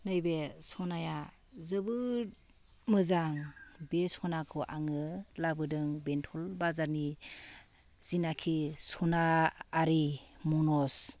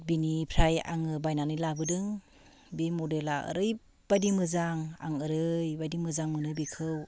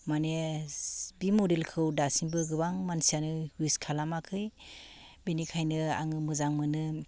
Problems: none marked